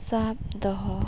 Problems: constant background noise